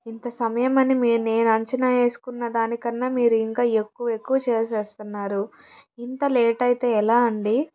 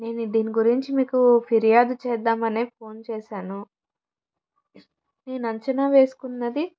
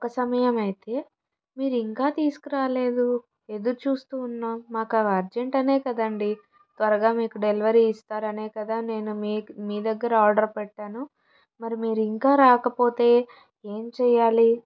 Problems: background sounds at intervals